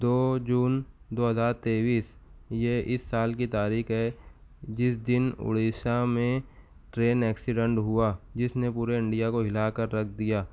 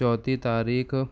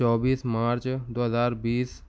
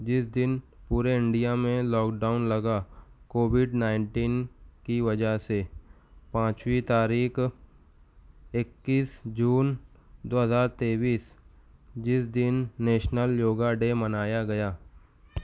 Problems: none marked